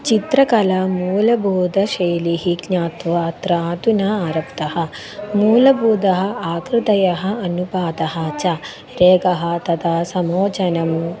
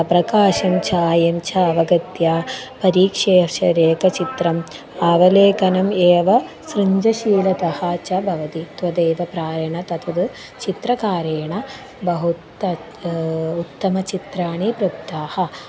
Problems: constant background noise